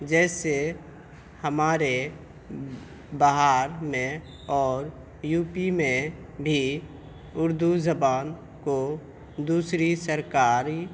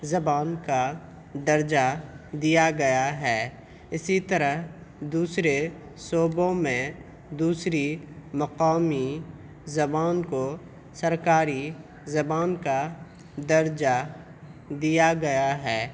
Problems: background sounds at intervals